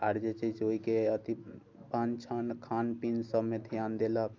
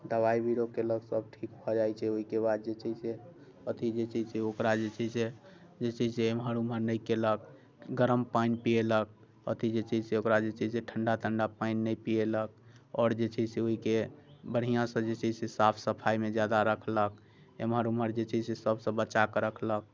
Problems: none marked